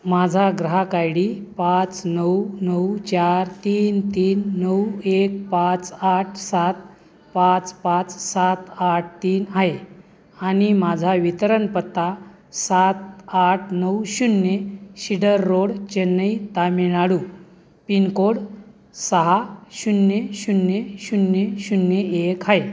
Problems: constant background noise, background conversations at intervals